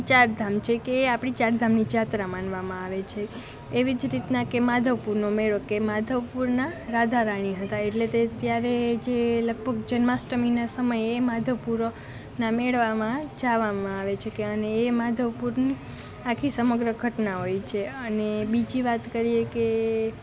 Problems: constant background noise